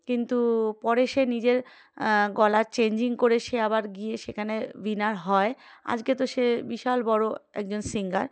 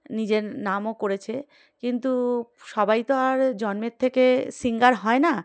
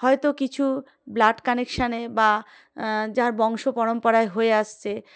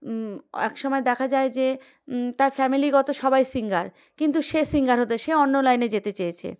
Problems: background sounds at intervals